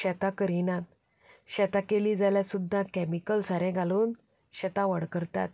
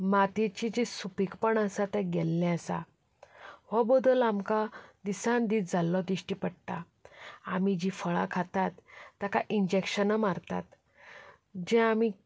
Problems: none marked